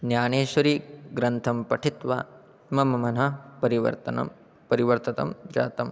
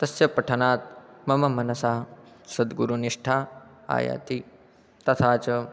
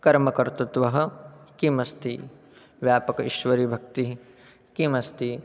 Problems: none marked